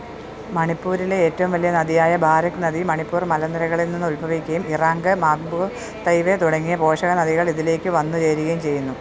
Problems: none marked